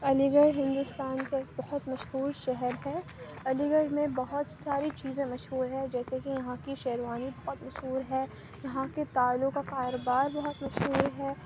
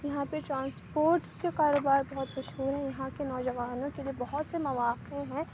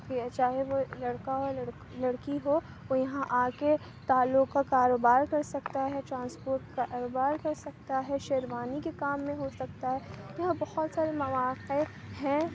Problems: constant background noise